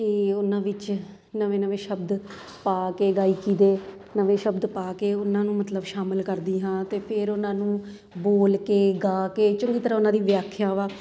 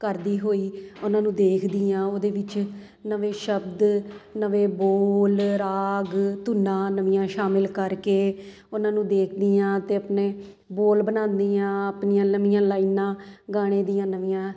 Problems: none marked